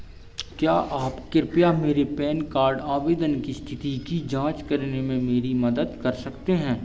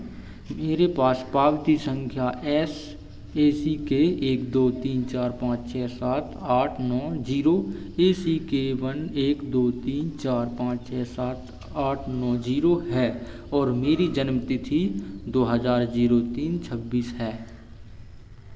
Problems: none marked